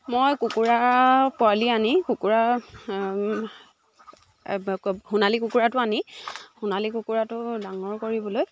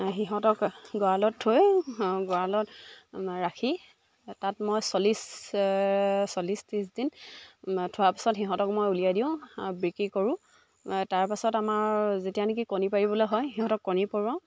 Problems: background sounds at intervals